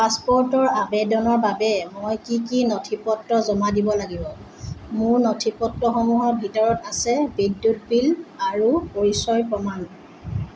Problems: constant background noise